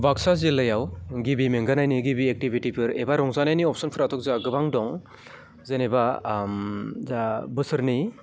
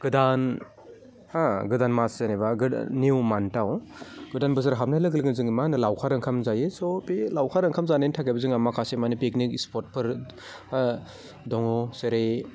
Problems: none marked